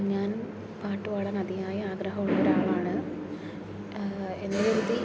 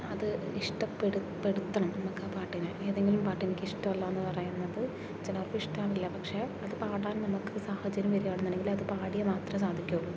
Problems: background sounds at intervals